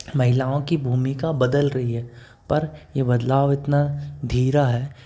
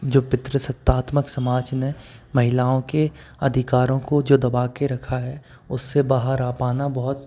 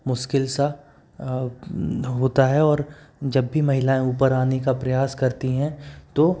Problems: constant background noise